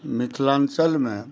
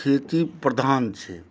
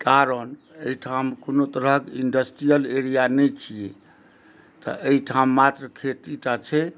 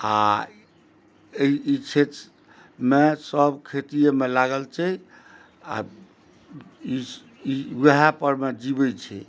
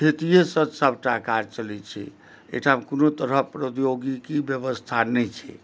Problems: none marked